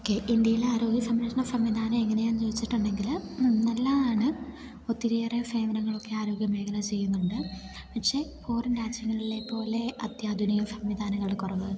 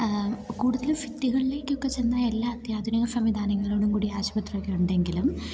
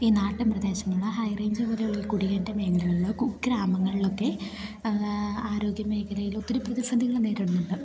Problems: background sounds at intervals